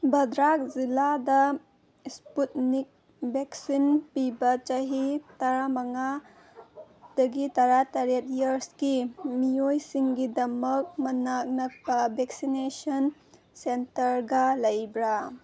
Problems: none marked